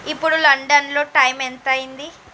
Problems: constant background noise